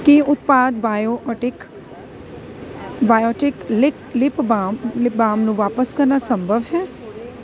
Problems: constant background noise